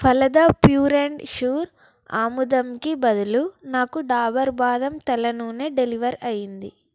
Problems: background sounds at intervals